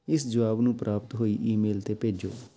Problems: none marked